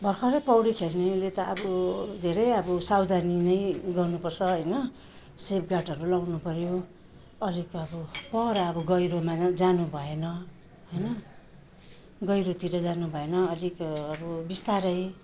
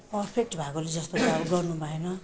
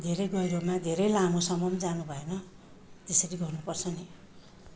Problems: none marked